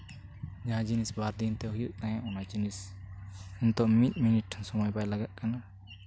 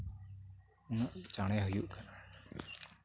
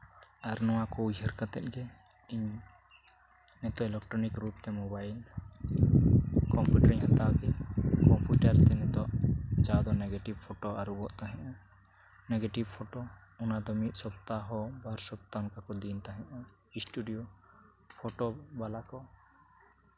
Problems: constant background noise, low volume